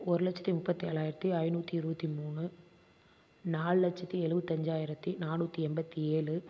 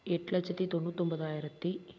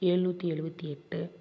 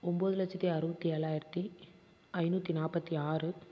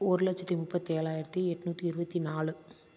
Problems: constant background noise